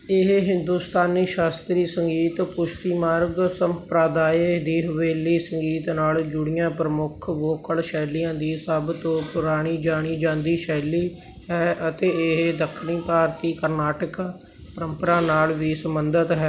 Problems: background sounds at intervals